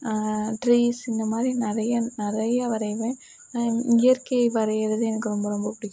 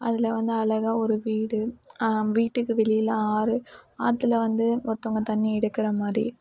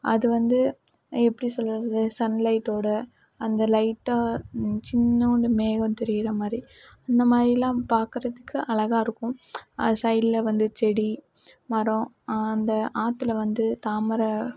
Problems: background sounds at intervals